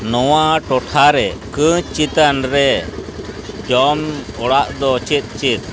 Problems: constant background noise